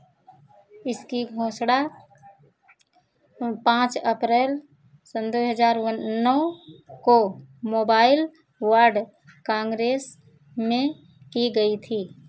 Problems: background sounds at intervals